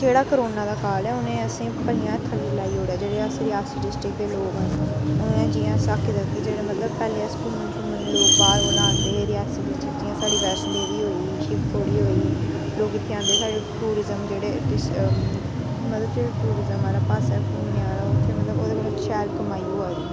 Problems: constant background noise